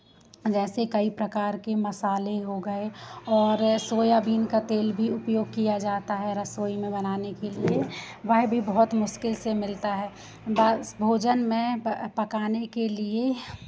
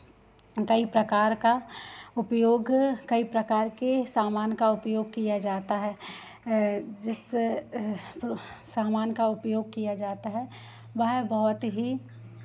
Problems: none marked